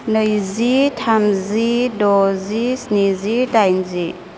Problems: constant background noise